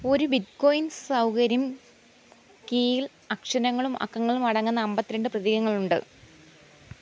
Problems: constant background noise